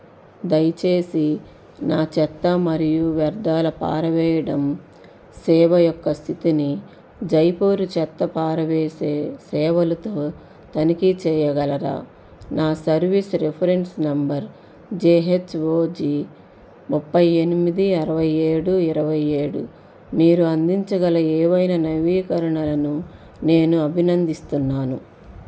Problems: constant background noise